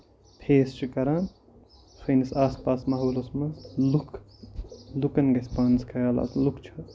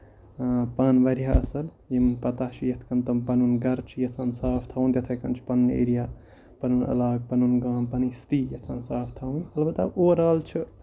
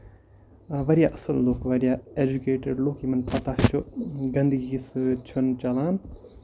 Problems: constant background noise